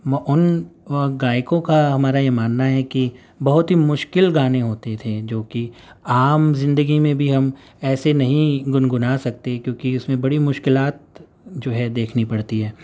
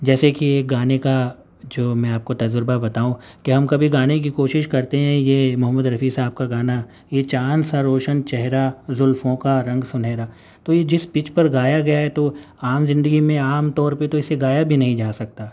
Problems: none marked